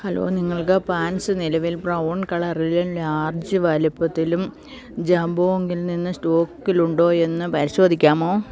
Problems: none marked